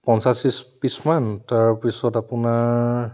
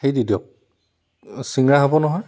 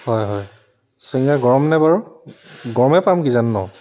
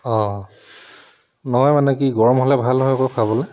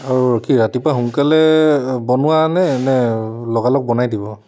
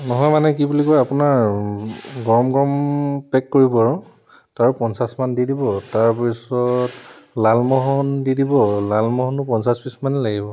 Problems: constant background noise